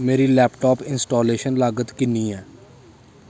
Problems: constant background noise